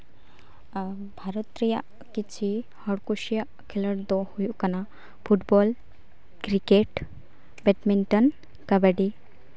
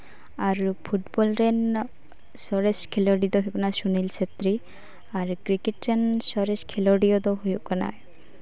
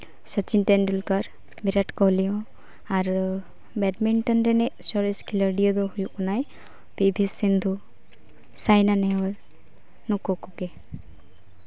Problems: constant background noise, continuous background conversations